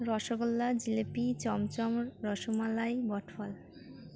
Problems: background sounds at intervals